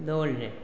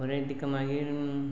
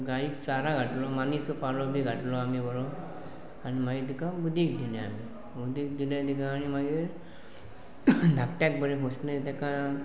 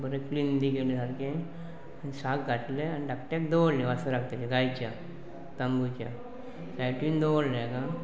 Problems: constant background noise, continuous background conversations